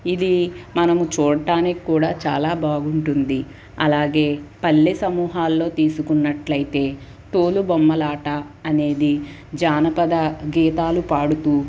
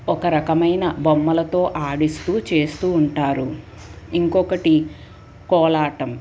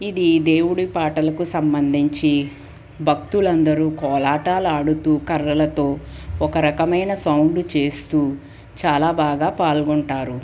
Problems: none marked